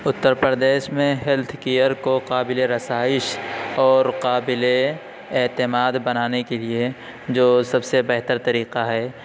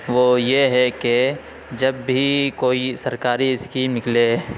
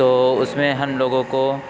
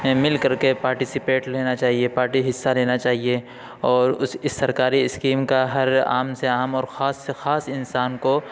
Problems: constant background noise